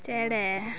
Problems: none marked